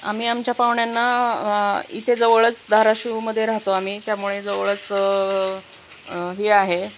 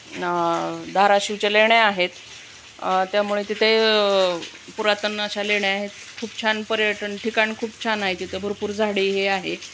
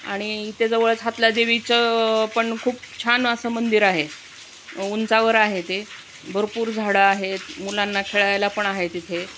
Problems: constant background noise